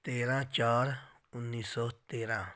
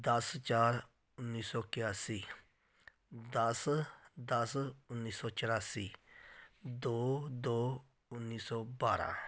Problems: none marked